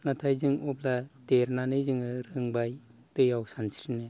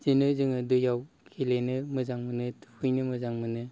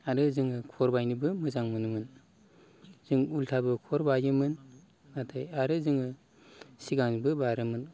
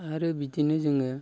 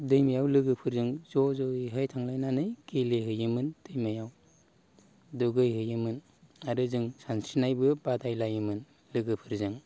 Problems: none marked